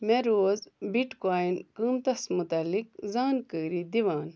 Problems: none marked